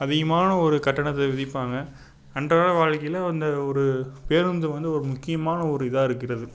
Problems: constant background noise